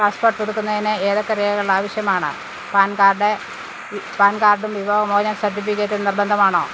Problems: constant background noise